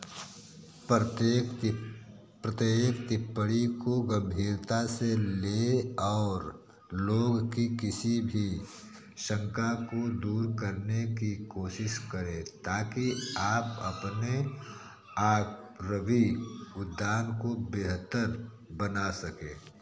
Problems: background sounds at intervals